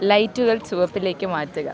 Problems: constant background noise